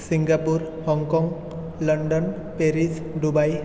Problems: constant background noise